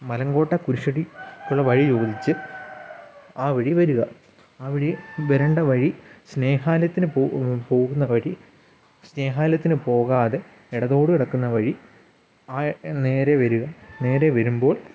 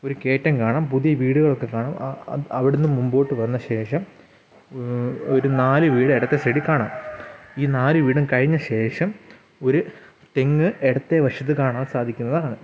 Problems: background sounds at intervals